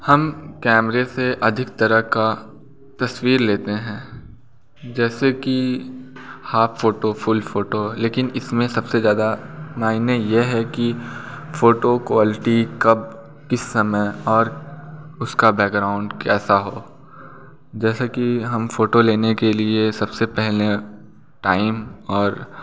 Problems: constant background noise